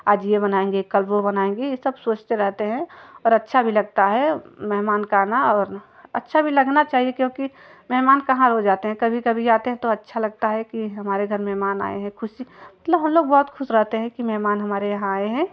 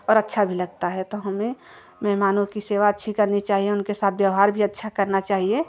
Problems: none marked